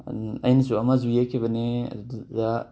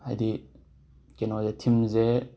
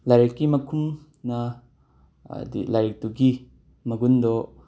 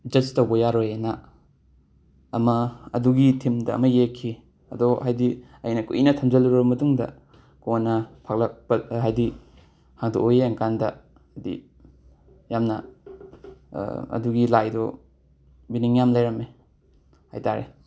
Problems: background sounds at intervals